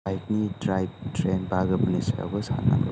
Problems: none marked